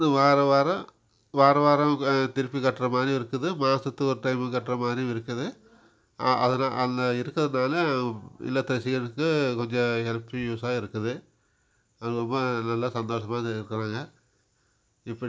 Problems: background sounds at intervals